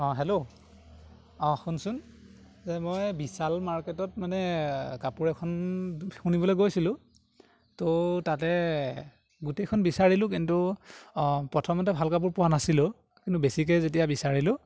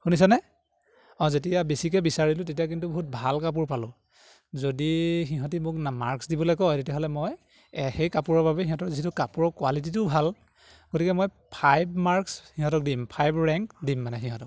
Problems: none marked